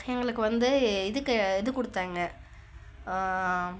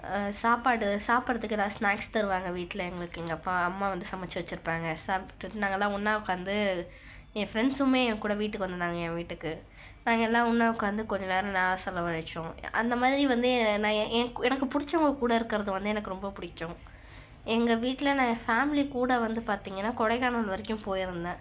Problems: background sounds at intervals